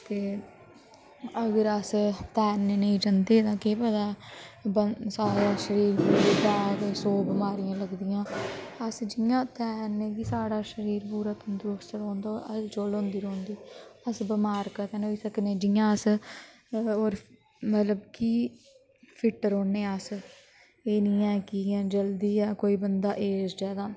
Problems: constant background noise